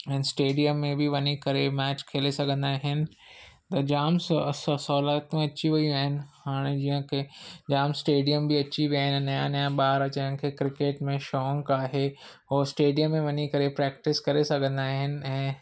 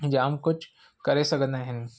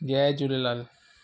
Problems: none marked